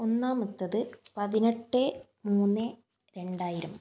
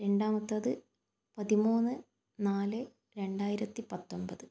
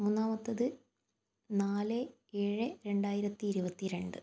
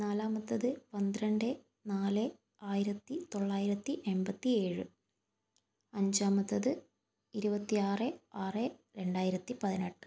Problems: none marked